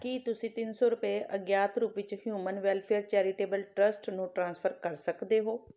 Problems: background sounds at intervals